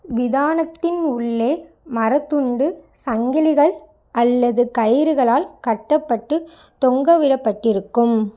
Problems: none marked